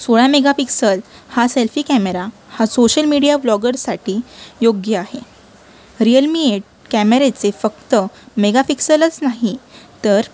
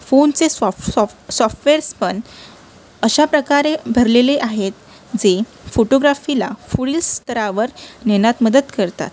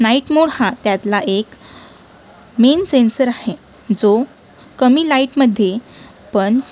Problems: constant background noise, continuous background conversations